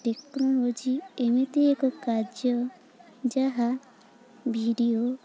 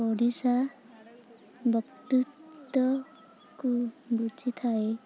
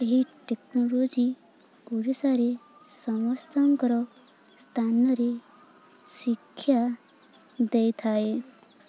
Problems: constant background noise, continuous background conversations